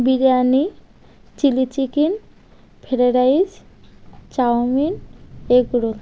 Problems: constant background noise